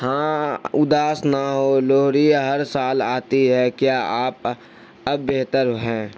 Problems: constant background noise